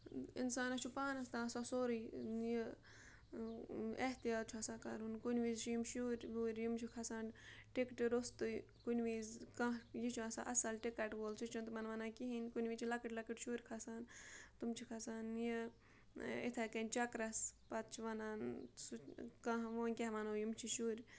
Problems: background sounds at intervals, low volume